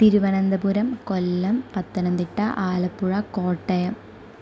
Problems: none marked